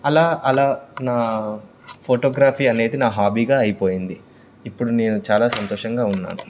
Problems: background sounds at intervals